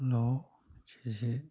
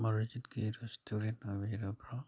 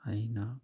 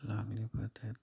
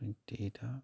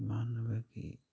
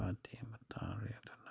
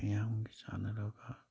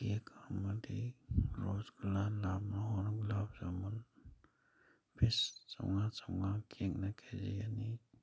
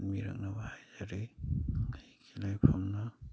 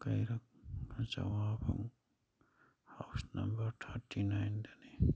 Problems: background sounds at intervals